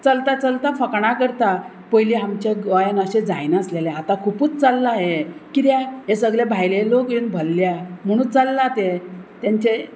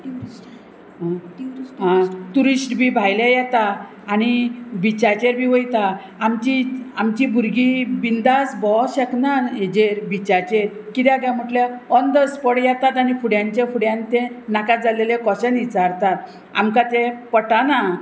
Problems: constant background noise